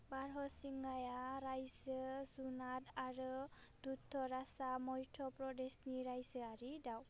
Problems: constant background noise